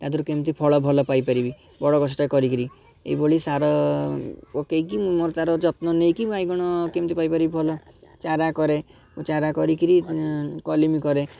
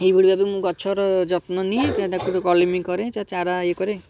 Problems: background sounds at intervals, background conversations at intervals